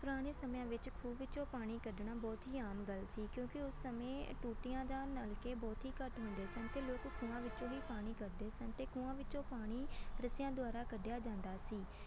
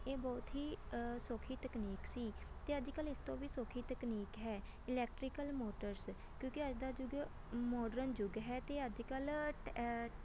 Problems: constant background noise